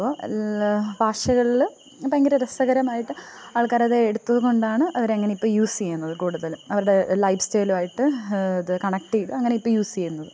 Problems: none marked